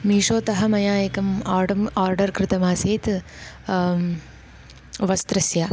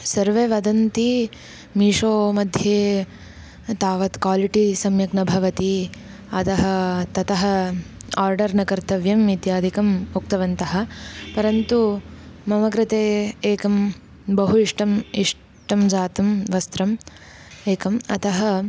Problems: constant background noise